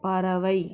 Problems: constant background noise